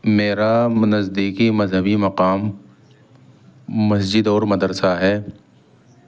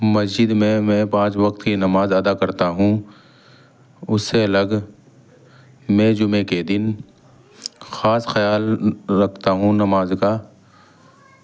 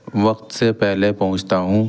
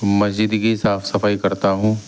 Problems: background sounds at intervals